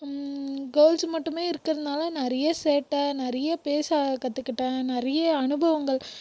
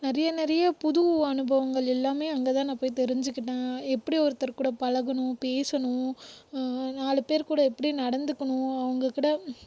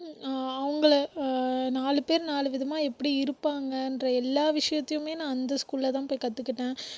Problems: background sounds at intervals